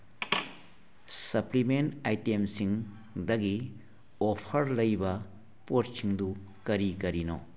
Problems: none marked